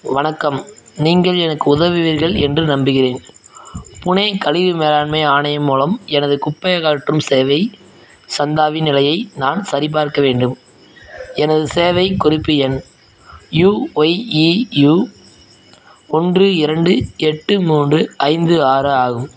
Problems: background sounds at intervals, background conversations at intervals